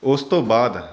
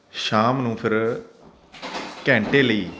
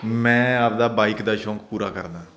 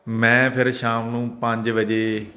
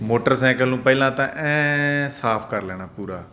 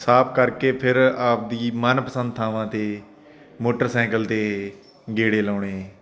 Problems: none marked